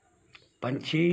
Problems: none marked